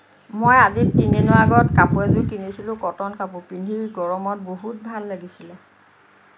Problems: none marked